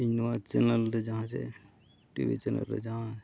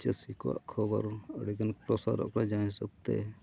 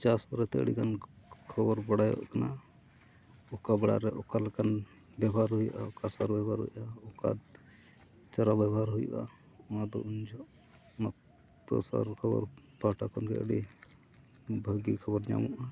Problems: low volume